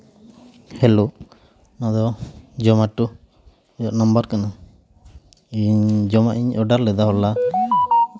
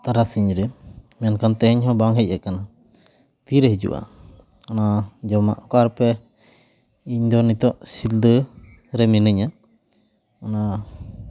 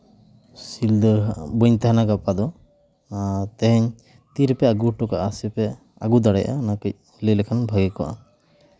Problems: none marked